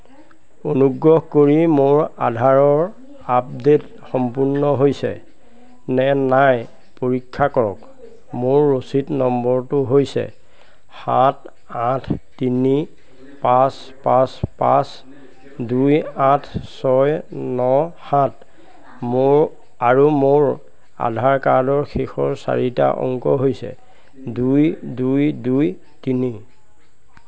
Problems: none marked